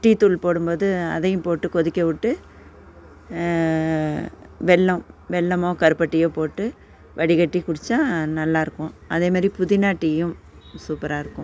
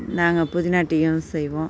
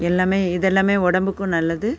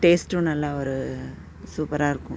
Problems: constant background noise